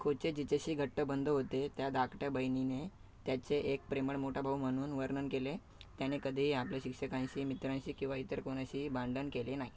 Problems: none marked